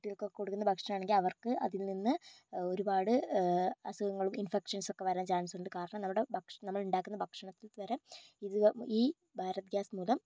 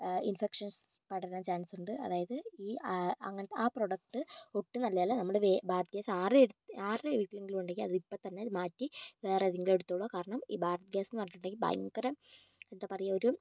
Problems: low volume